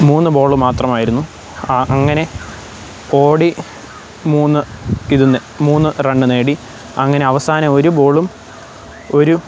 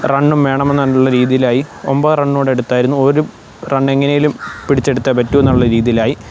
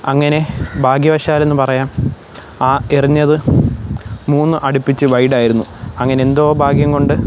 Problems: none marked